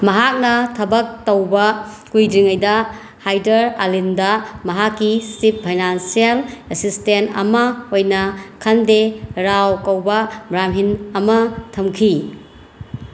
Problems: constant background noise